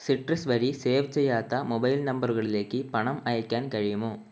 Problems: constant background noise